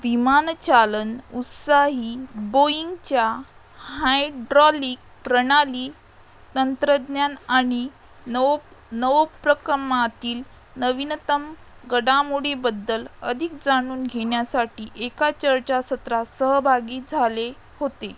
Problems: background sounds at intervals